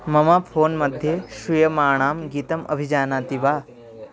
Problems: constant background noise